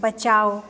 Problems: constant background noise, echo